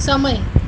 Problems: constant background noise